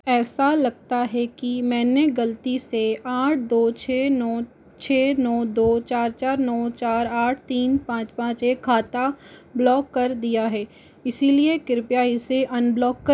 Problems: constant background noise